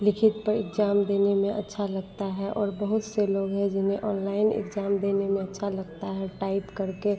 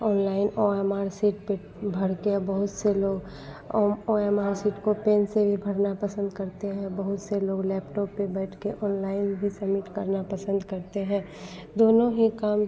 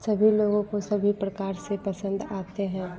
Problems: background sounds at intervals